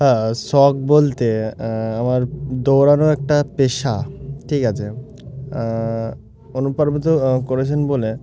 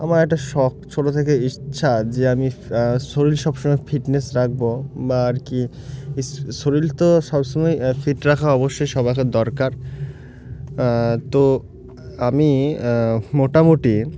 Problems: none marked